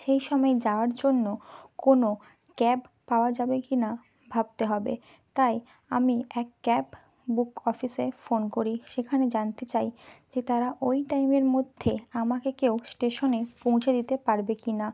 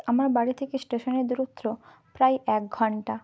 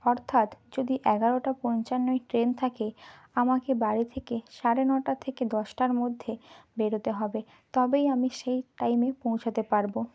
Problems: background sounds at intervals, background conversations at intervals